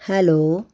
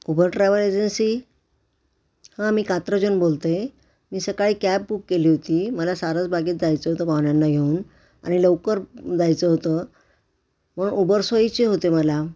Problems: background sounds at intervals